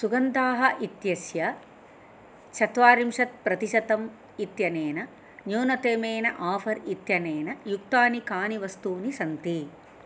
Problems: none marked